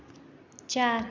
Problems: none marked